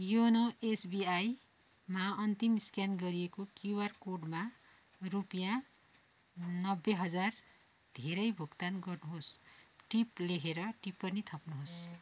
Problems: background sounds at intervals